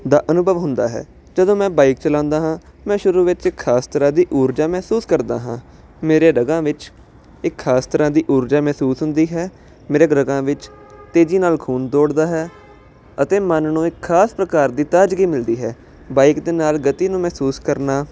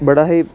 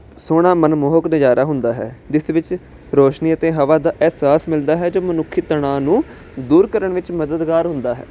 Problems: constant background noise